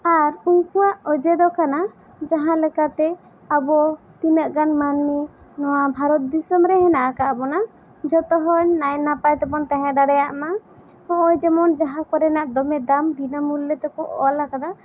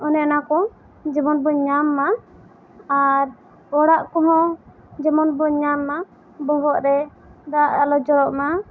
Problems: constant background noise